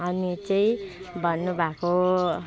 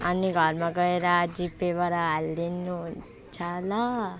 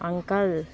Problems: constant background noise